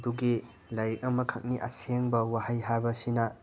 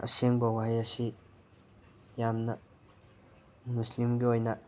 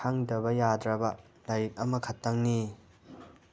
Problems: constant background noise